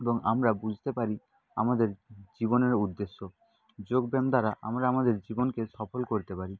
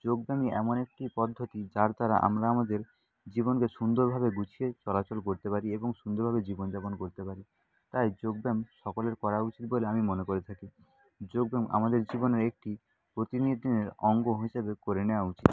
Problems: constant background noise, low volume